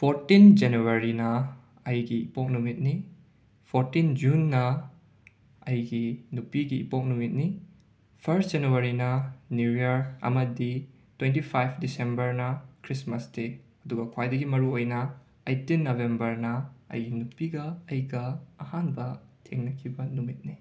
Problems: none marked